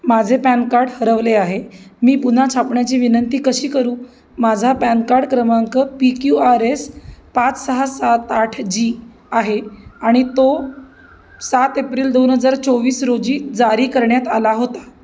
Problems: background sounds at intervals